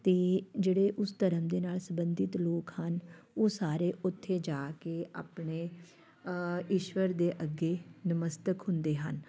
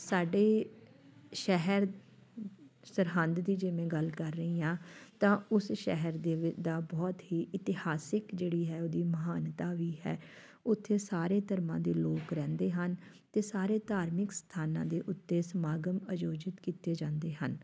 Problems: background sounds at intervals, background conversations at intervals